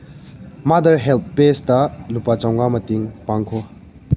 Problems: low volume